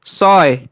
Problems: constant background noise